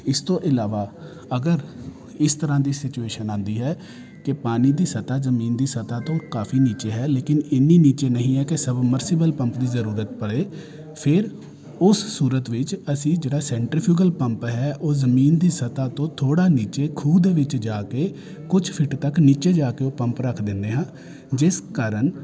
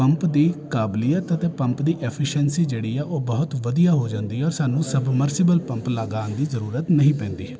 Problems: continuous background conversations